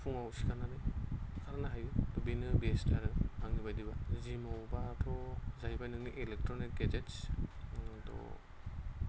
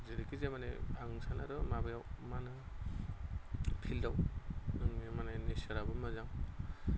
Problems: constant background noise